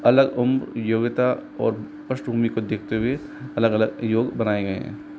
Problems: constant background noise